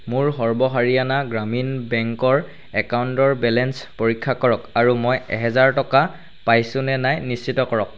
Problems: none marked